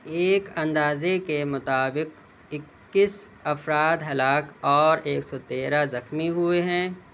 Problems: none marked